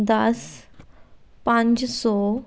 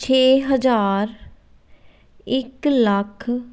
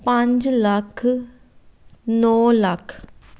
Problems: background sounds at intervals